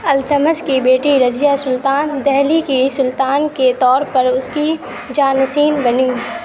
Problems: constant background noise